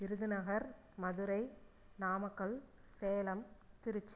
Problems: low volume